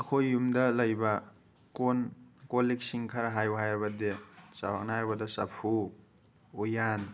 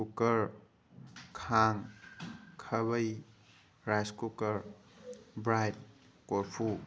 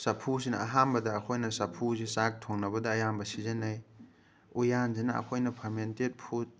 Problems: background sounds at intervals